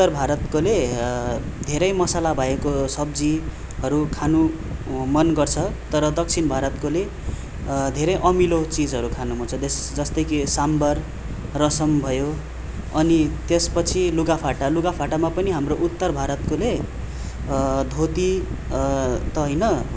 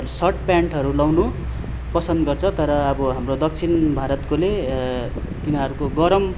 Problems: constant background noise